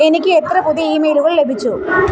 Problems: constant background noise